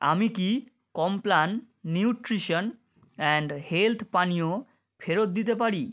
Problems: background sounds at intervals